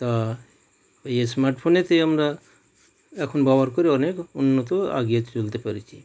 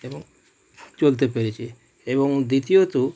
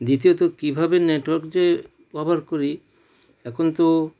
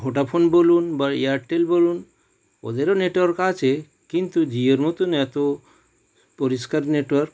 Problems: background sounds at intervals